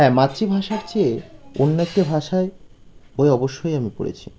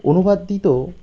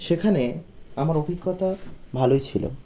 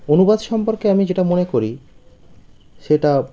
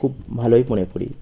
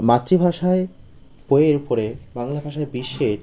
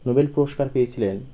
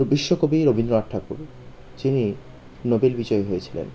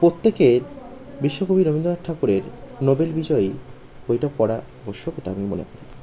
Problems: continuous background conversations